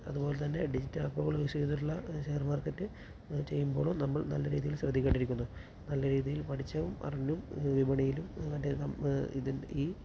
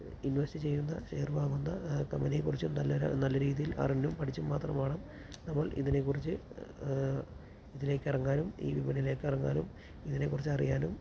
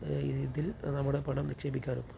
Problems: constant background noise, low volume